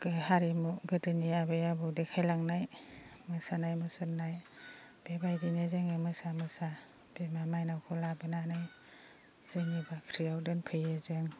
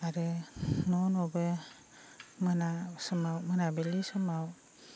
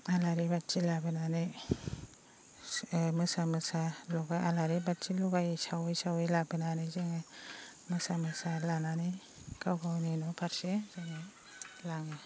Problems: low volume